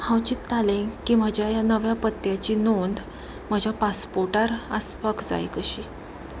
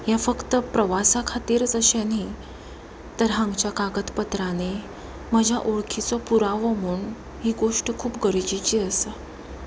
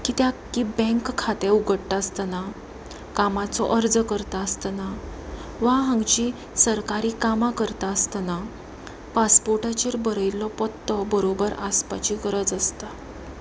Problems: constant background noise, continuous background conversations